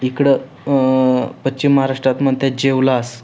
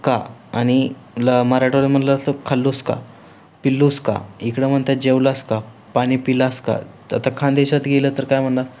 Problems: constant background noise